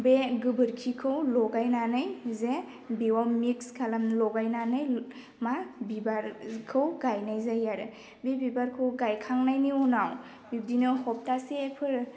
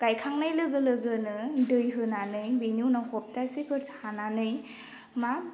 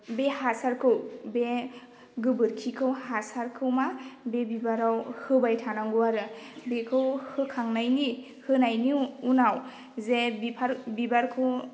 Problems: none marked